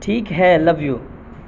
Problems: constant background noise